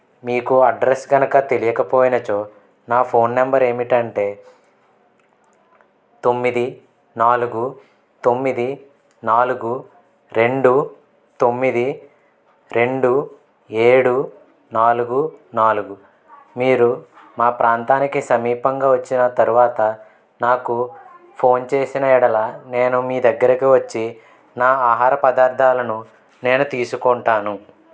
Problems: constant background noise, background conversations at intervals